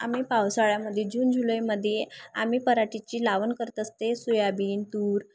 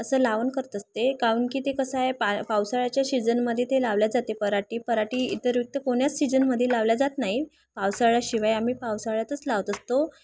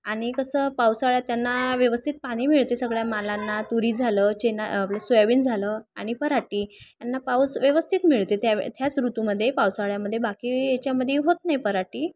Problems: none marked